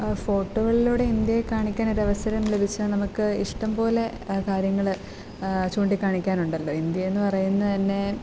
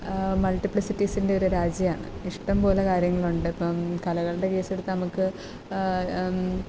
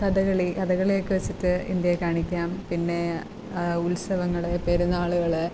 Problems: constant background noise